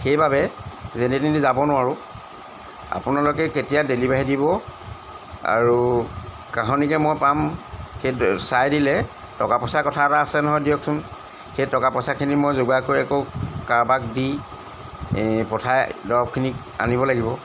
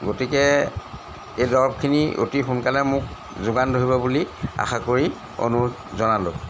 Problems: background sounds at intervals